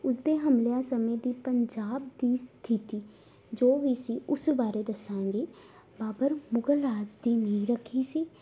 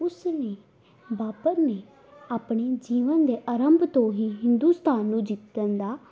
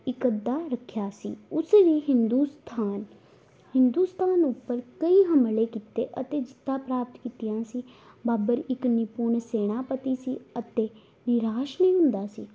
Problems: none marked